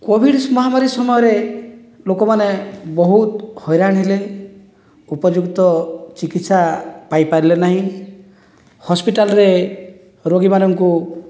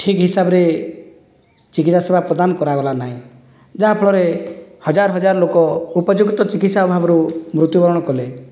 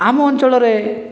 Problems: none marked